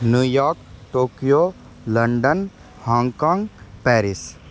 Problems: constant background noise